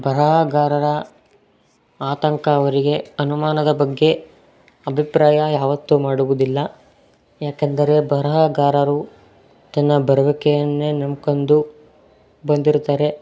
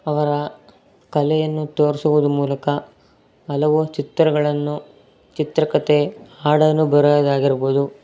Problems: none marked